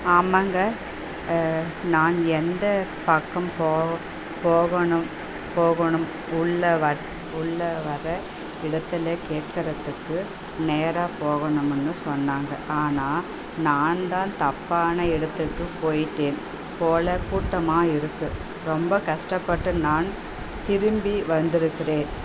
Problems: constant background noise